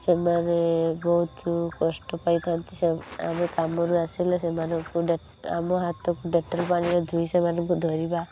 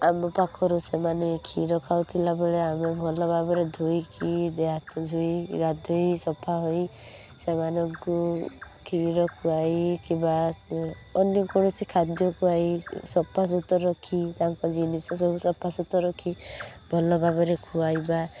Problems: constant background noise